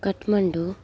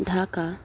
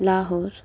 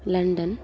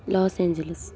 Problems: none marked